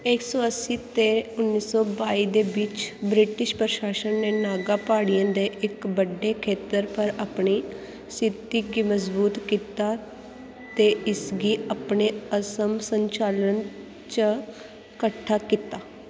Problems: constant background noise, echo